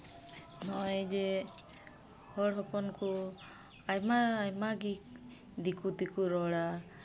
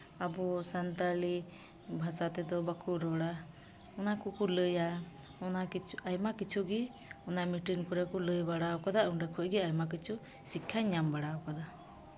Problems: none marked